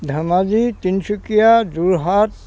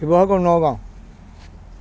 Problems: constant background noise